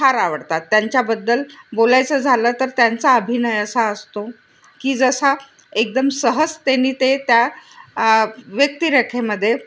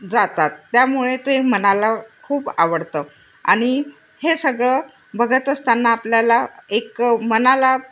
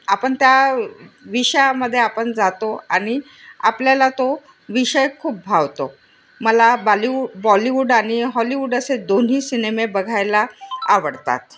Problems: constant background noise, background conversations at intervals